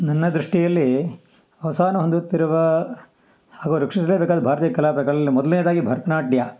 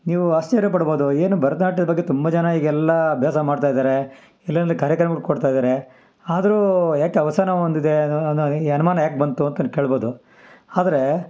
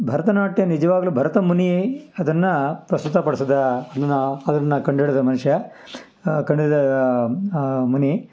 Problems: background sounds at intervals